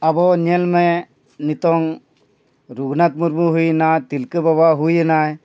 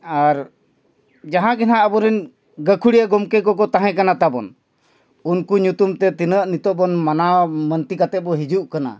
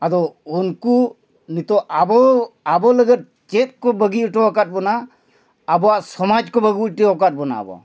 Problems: background conversations at intervals